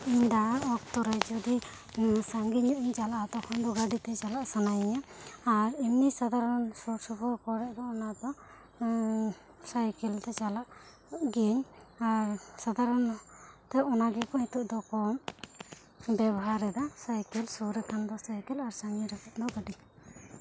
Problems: low volume